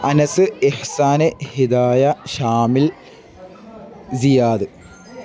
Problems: background sounds at intervals